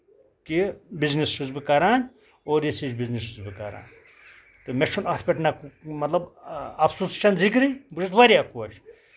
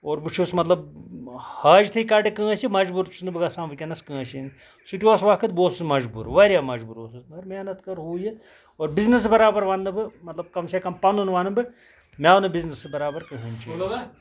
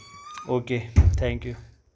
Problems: background sounds at intervals